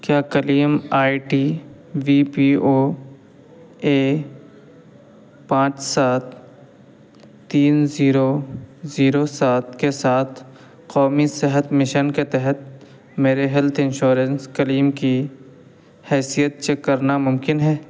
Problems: constant background noise